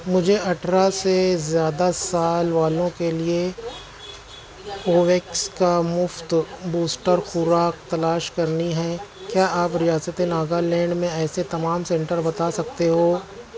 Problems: constant background noise